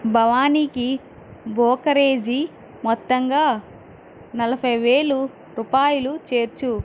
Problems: constant background noise